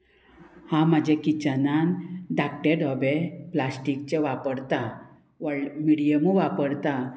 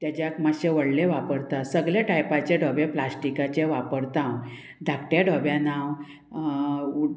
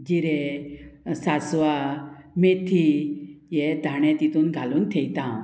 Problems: constant background noise